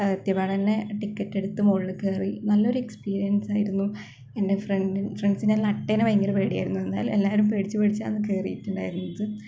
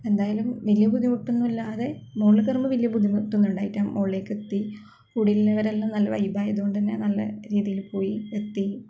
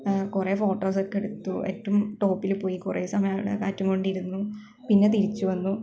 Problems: none marked